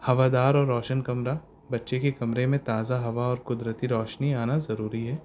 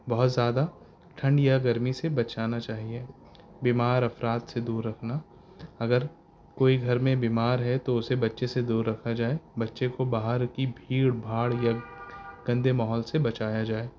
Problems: constant background noise